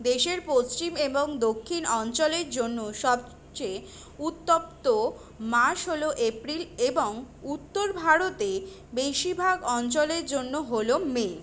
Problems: constant background noise